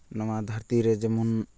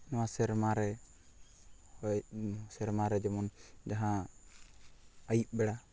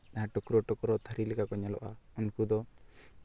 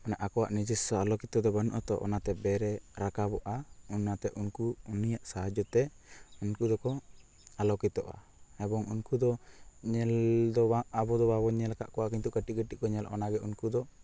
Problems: constant background noise